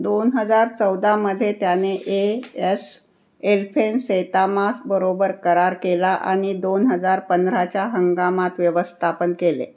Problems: none marked